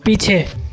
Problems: constant background noise